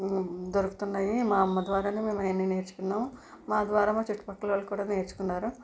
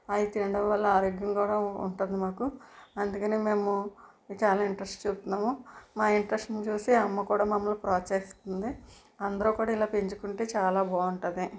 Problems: background sounds at intervals